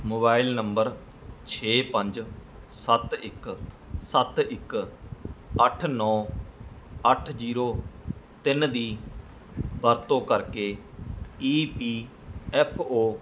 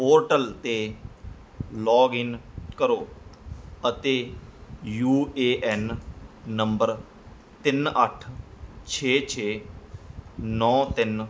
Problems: background sounds at intervals